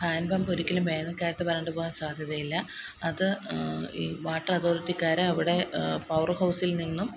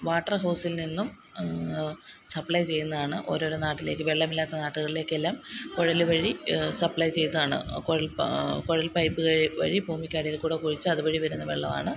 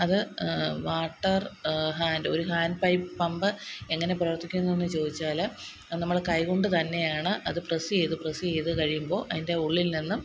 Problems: constant background noise